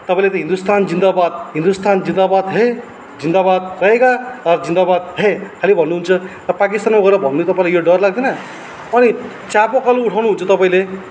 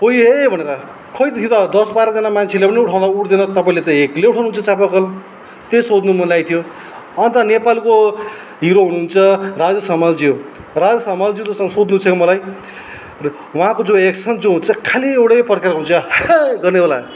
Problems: none marked